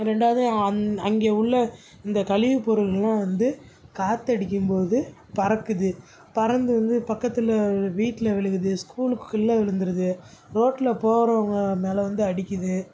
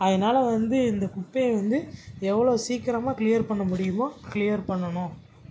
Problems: background sounds at intervals